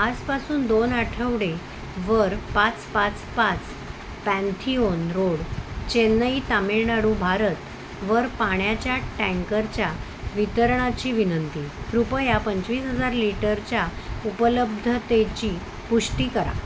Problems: constant background noise